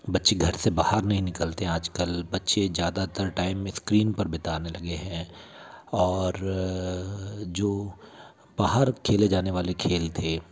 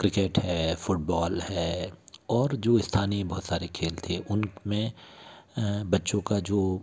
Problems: none marked